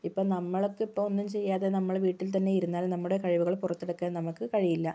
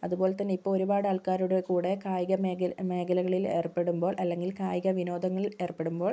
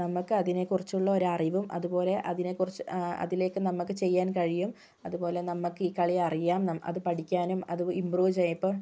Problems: low volume